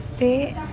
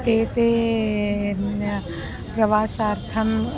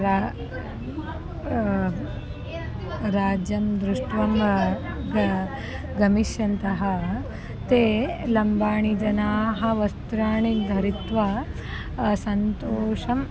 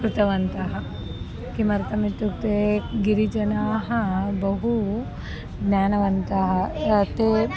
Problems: background conversations at intervals